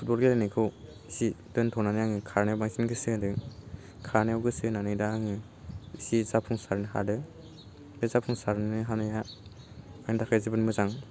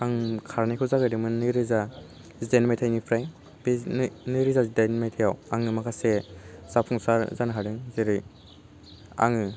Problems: none marked